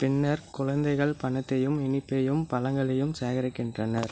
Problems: constant background noise